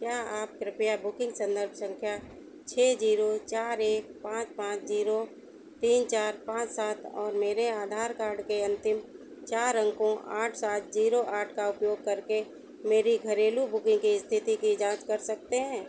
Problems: none marked